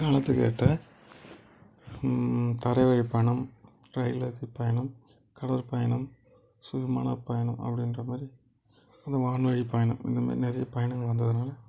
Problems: background sounds at intervals